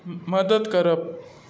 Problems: none marked